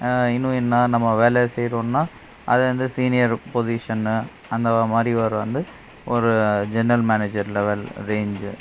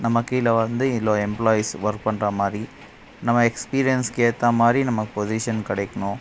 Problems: constant background noise